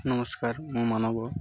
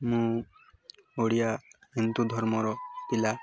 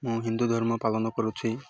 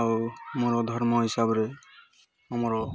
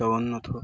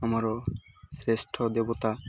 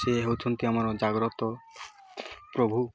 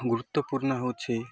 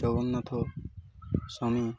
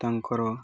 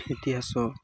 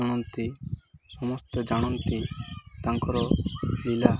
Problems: none marked